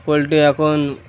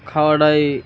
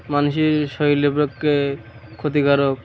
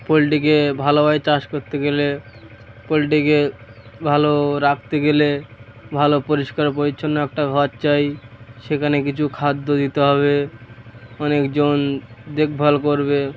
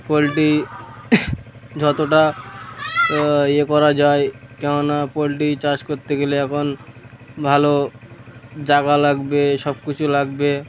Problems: none marked